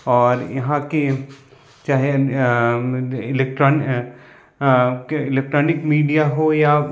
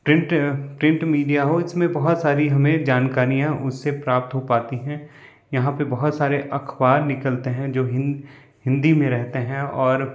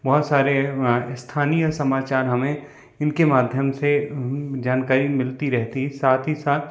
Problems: constant background noise